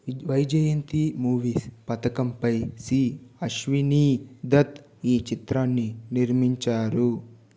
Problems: none marked